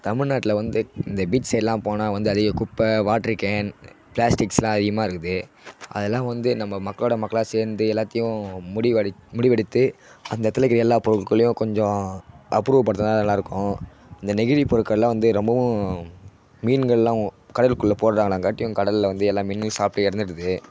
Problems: none marked